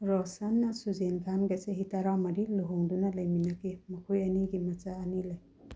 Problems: low volume